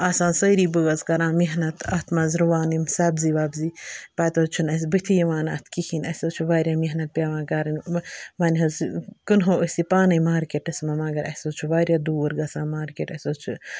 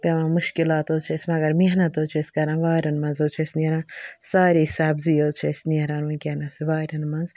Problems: background sounds at intervals